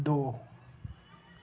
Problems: none marked